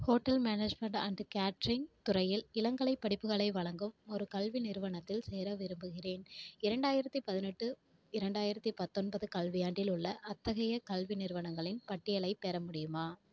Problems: none marked